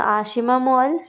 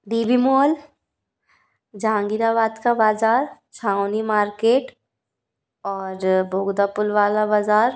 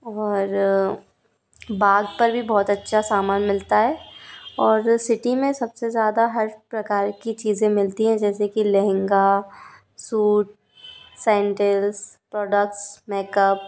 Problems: background sounds at intervals